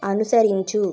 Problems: constant background noise